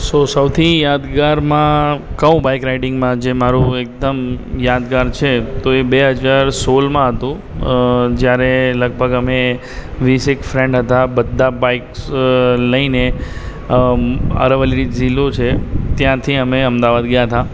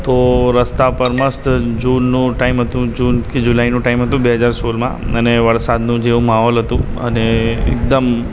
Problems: constant background noise